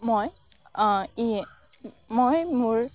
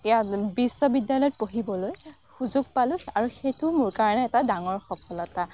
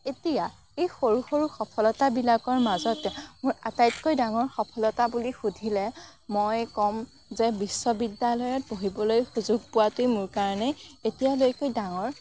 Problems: background sounds at intervals, background conversations at intervals